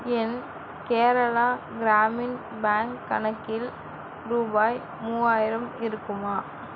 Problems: constant background noise